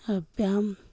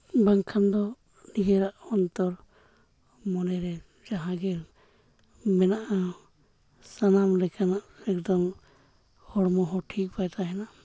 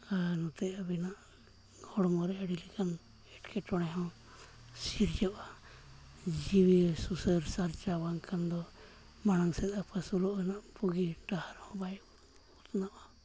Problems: none marked